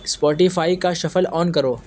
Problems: constant background noise